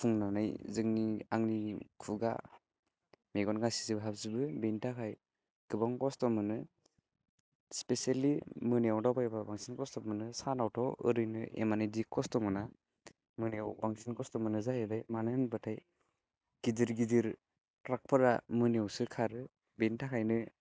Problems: none marked